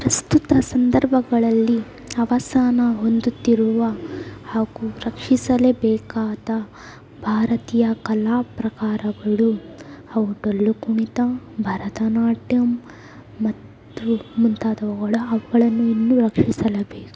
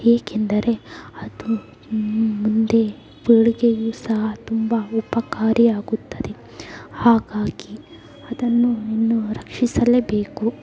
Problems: background sounds at intervals